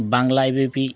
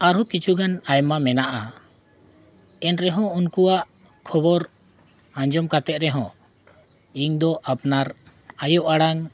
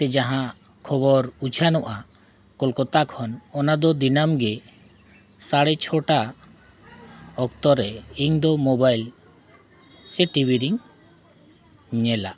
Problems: background sounds at intervals, continuous background conversations